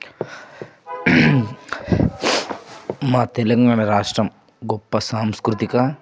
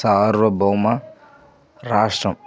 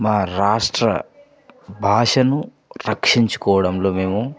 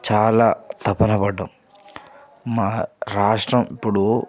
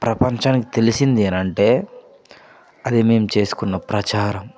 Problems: none marked